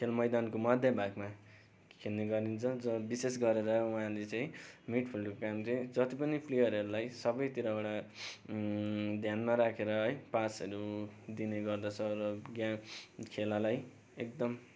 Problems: none marked